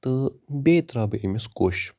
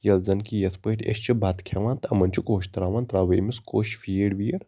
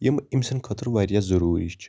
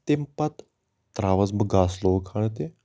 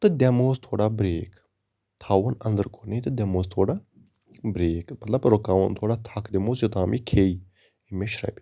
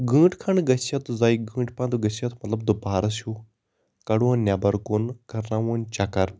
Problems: constant background noise